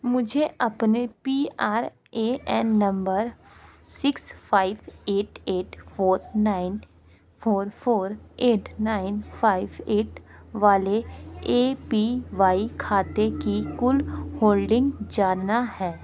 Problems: constant background noise, continuous background conversations